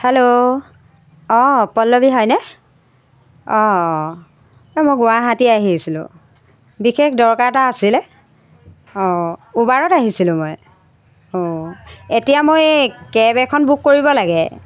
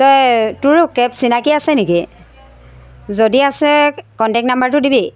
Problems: constant background noise